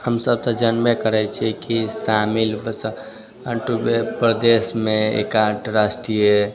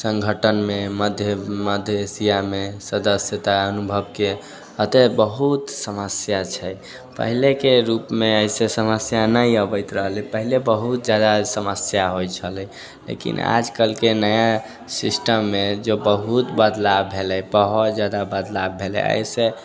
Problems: none marked